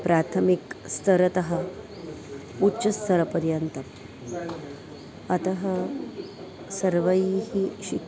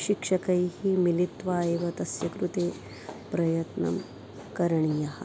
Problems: constant background noise, continuous background conversations